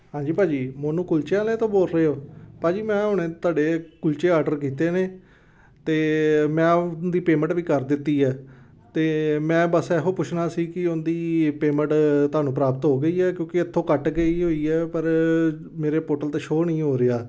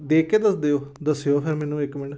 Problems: background conversations at intervals